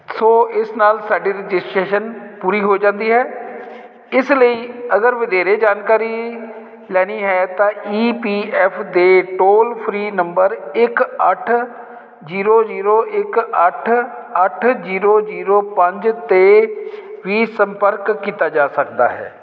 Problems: constant background noise